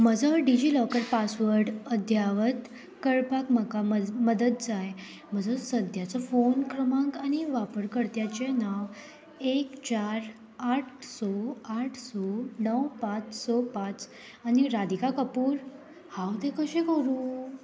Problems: none marked